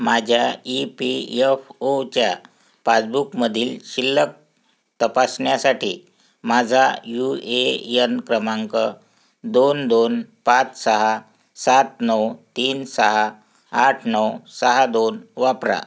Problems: constant background noise